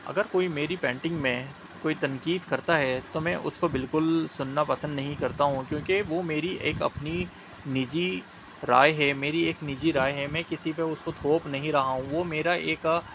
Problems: constant background noise